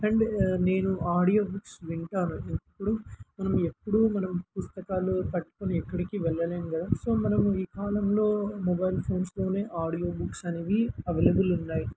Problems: constant background noise